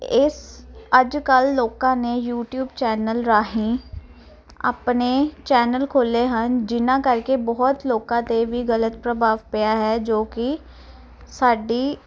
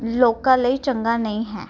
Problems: none marked